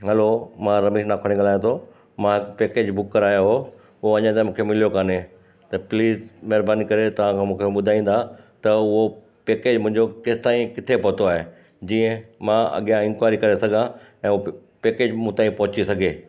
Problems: constant background noise, echo